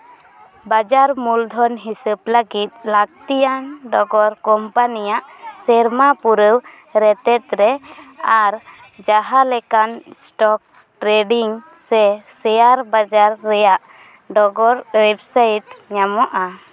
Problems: none marked